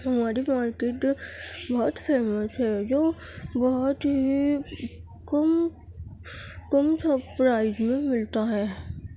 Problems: constant background noise